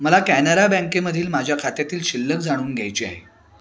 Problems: constant background noise, background conversations at intervals